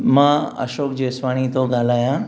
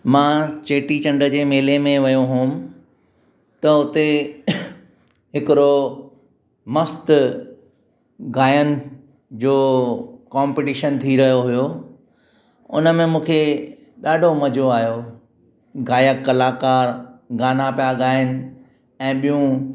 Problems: constant background noise, echo